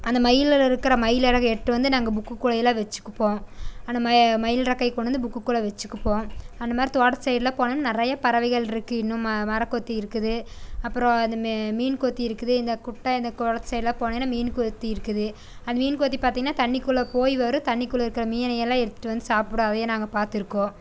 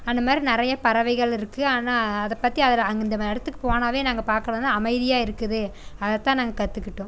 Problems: constant background noise